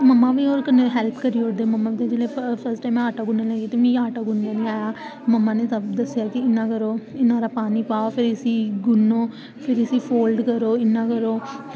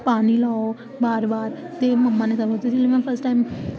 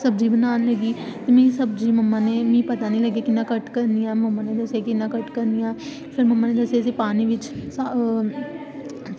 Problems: constant background noise